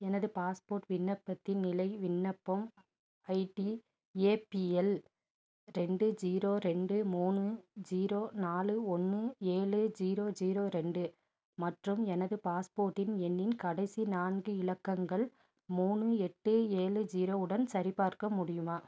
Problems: none marked